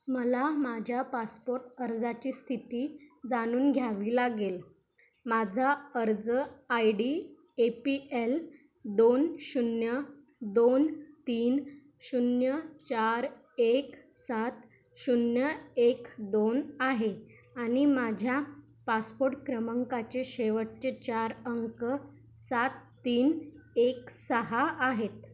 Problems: constant background noise